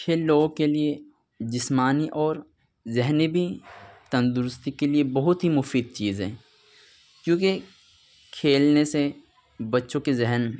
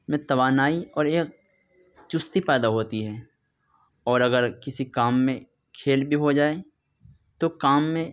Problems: background sounds at intervals, continuous background conversations